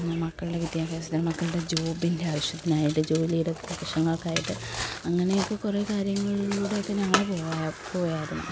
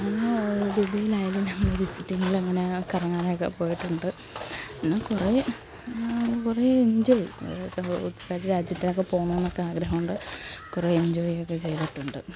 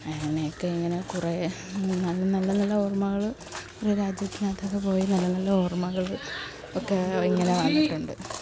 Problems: constant background noise, background conversations at intervals, low volume